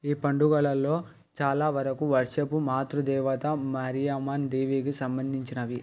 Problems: background sounds at intervals